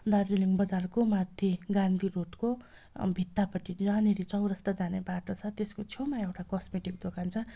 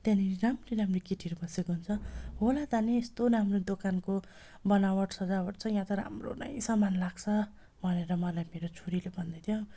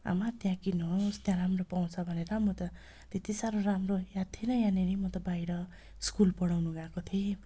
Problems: none marked